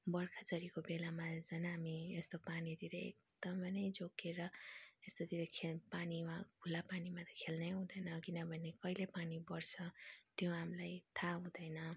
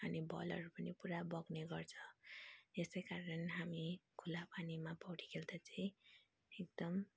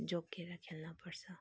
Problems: low volume